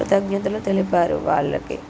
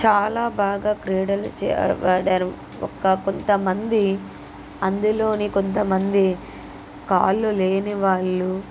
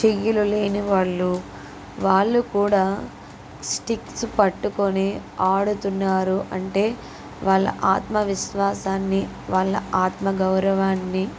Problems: constant background noise